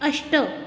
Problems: constant background noise